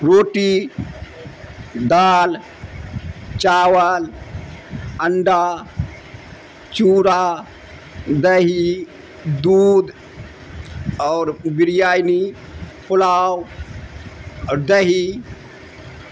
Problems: constant background noise